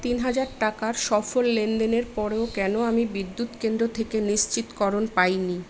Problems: none marked